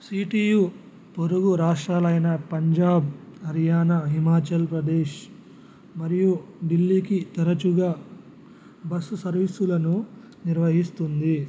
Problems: none marked